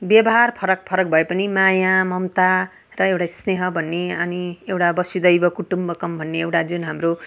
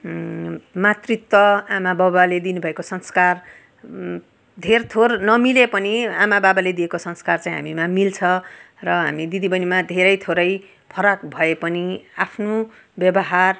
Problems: none marked